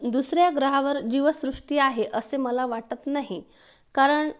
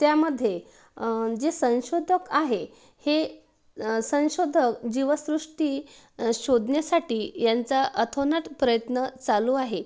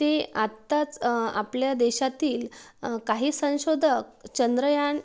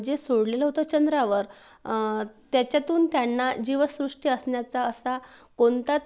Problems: background sounds at intervals